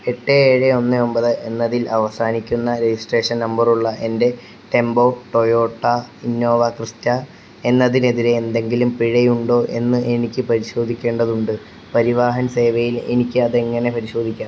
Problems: none marked